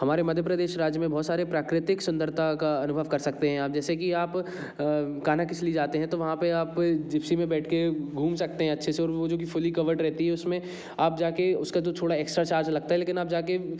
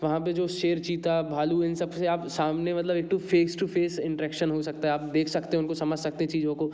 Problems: constant background noise